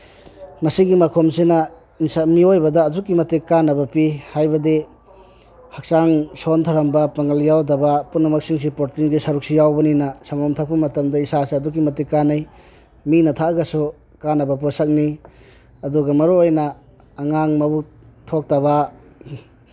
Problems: background sounds at intervals